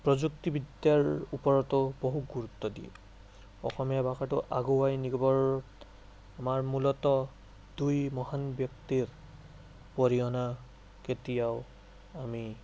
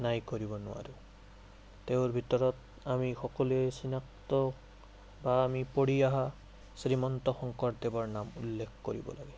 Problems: none marked